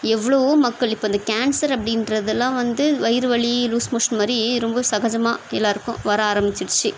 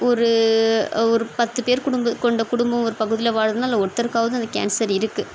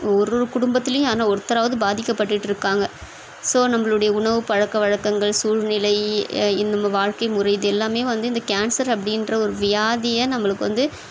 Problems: constant background noise